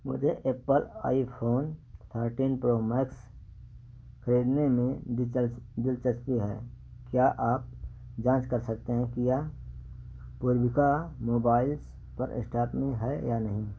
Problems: background sounds at intervals